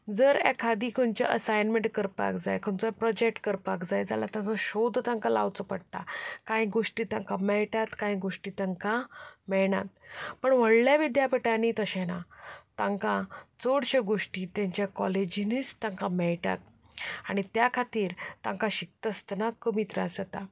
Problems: background sounds at intervals, background conversations at intervals